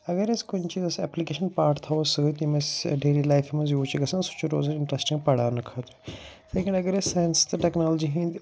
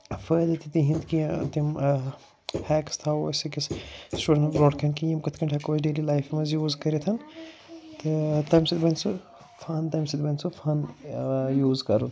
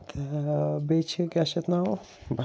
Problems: none marked